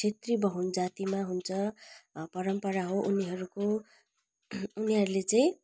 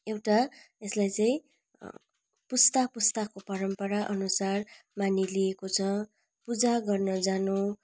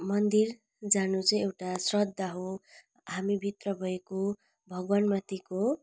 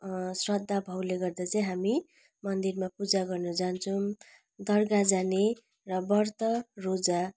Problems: none marked